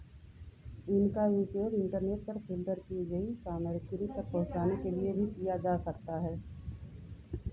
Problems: constant background noise, low volume